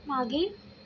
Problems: none marked